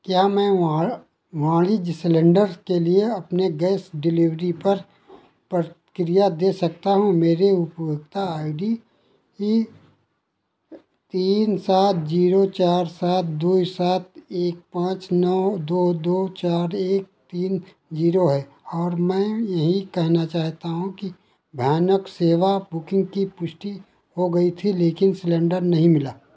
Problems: constant background noise